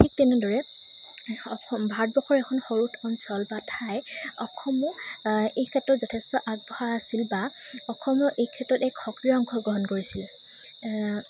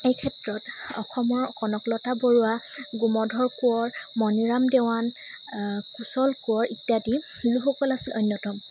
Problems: constant background noise